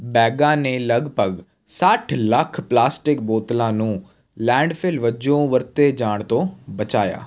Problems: constant background noise